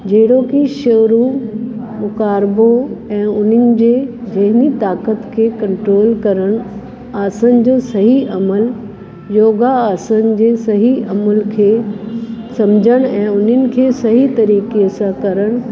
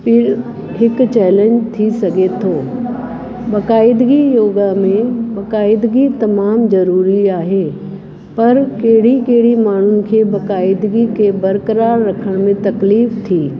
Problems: constant background noise